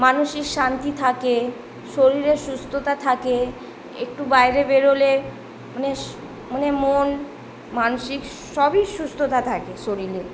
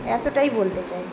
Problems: none marked